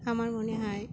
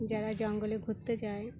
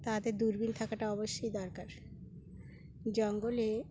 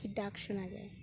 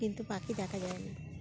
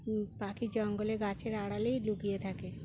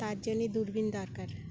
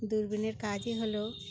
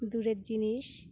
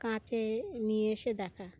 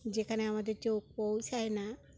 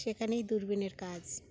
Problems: background sounds at intervals